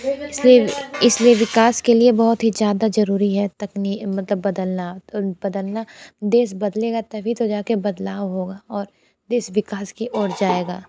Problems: background conversations at intervals